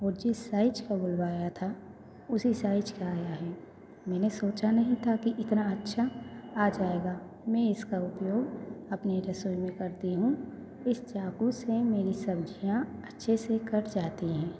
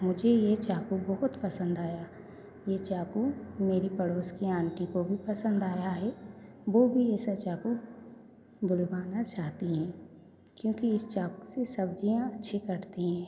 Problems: background sounds at intervals, echo